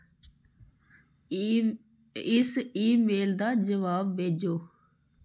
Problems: none marked